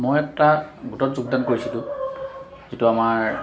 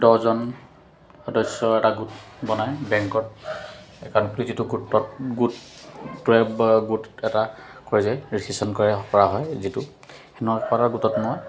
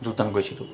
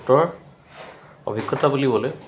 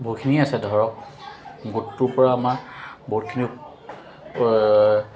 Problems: constant background noise